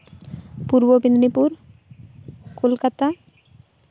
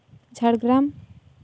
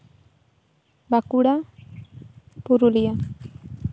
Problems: none marked